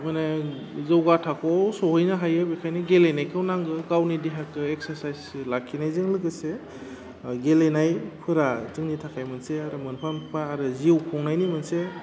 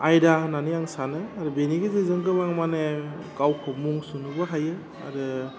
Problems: constant background noise